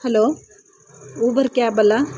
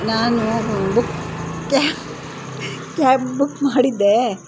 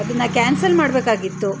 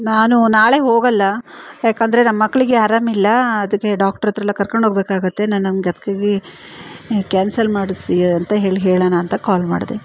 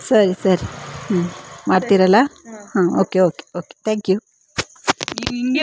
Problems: constant background noise